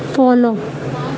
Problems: constant background noise, continuous background conversations